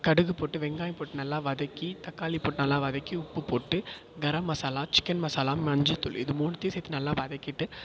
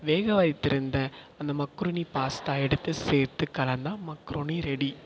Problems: echo